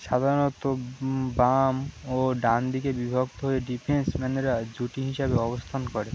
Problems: constant background noise